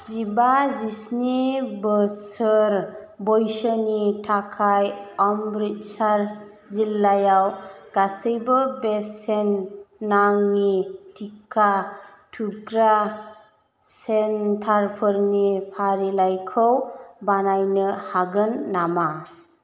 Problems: constant background noise